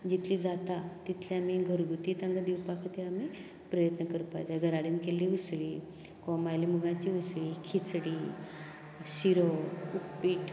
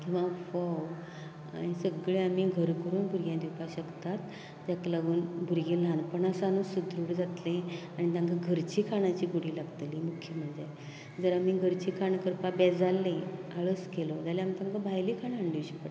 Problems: low volume